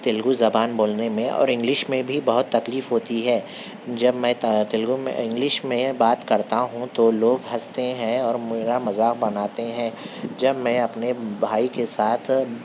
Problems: constant background noise